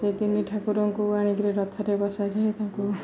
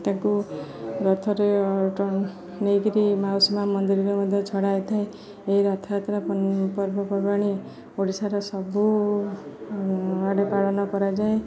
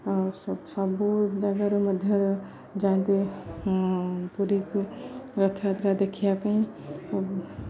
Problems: none marked